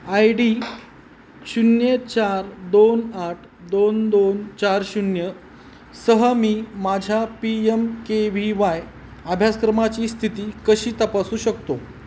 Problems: none marked